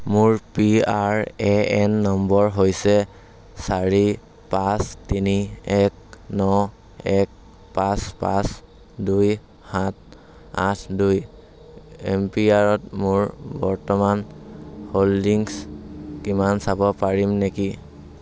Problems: constant background noise